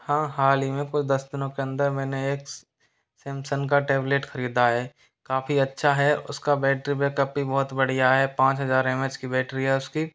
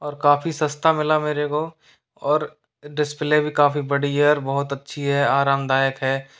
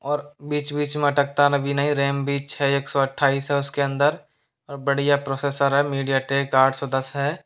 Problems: background sounds at intervals